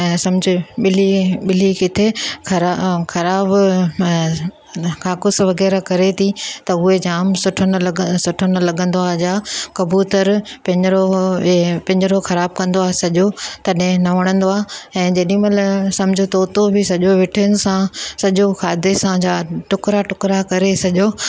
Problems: none marked